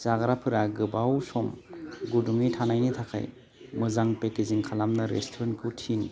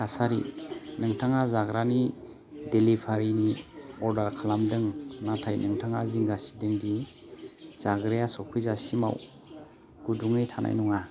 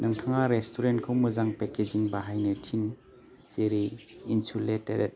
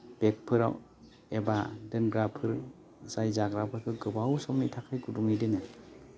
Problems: none marked